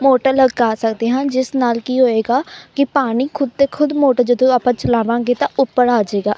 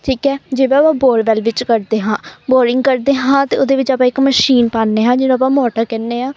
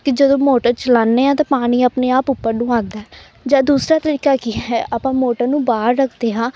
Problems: background sounds at intervals